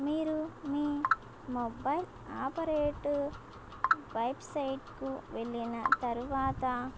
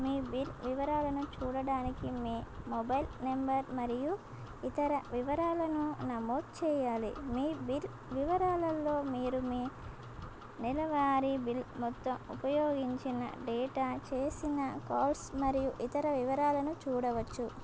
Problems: constant background noise